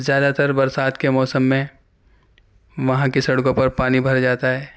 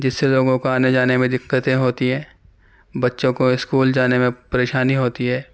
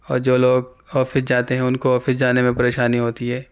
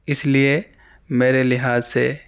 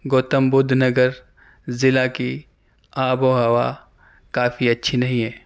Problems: none marked